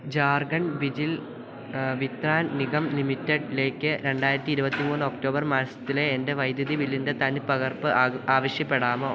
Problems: constant background noise